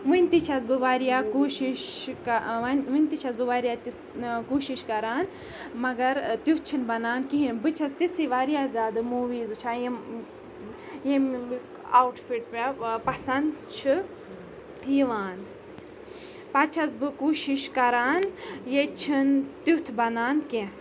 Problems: constant background noise, background conversations at intervals